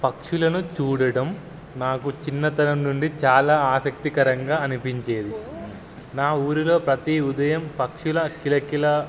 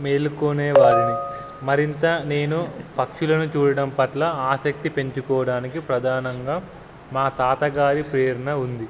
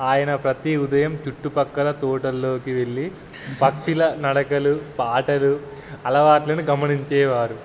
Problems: none marked